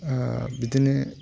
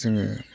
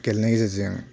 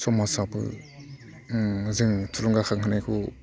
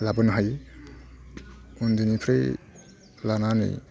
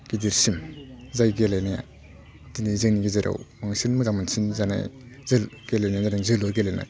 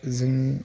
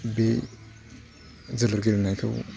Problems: low volume